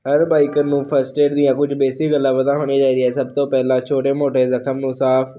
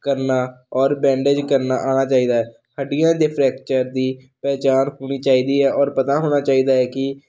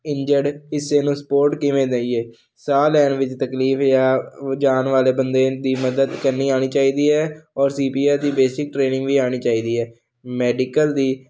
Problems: none marked